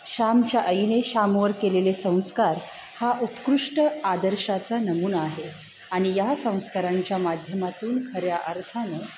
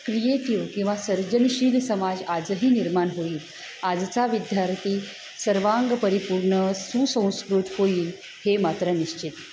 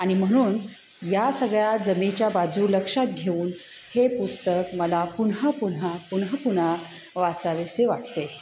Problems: constant background noise, background conversations at intervals